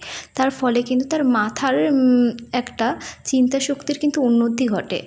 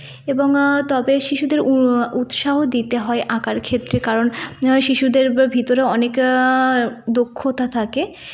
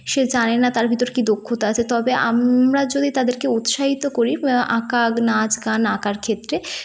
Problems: constant background noise